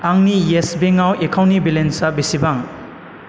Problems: constant background noise